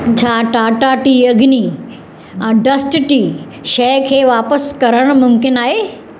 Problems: constant background noise, echo